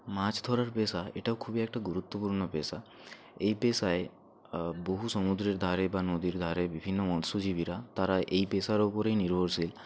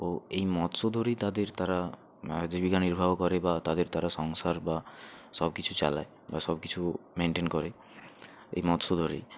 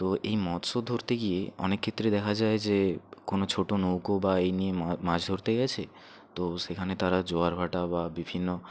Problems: background conversations at intervals